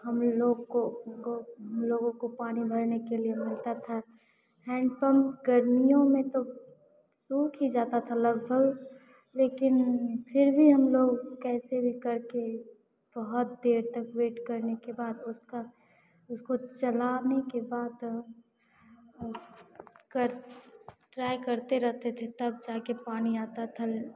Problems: none marked